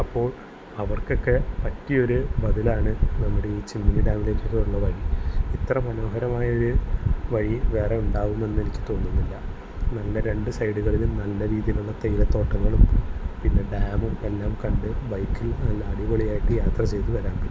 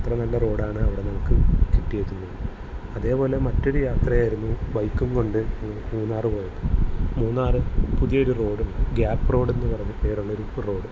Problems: constant background noise